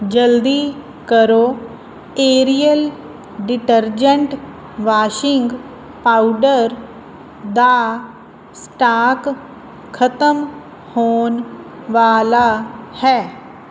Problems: constant background noise